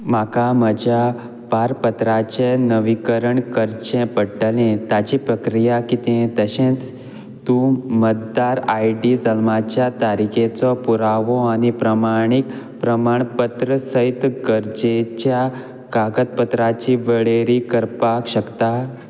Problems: constant background noise